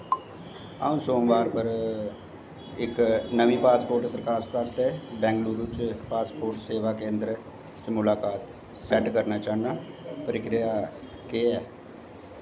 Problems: constant background noise, echo, low volume